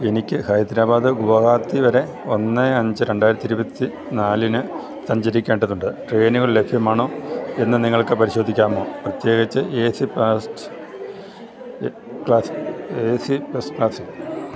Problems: constant background noise